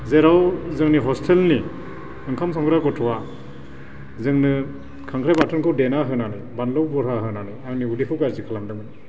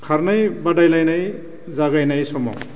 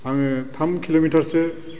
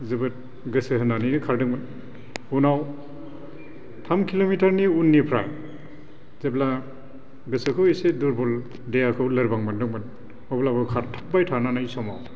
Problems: none marked